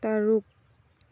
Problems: none marked